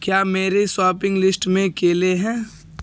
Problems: constant background noise